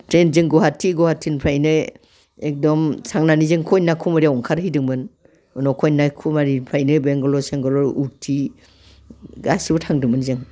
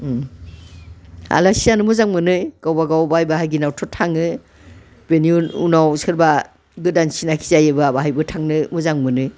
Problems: background conversations at intervals